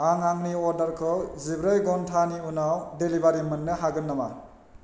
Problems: none marked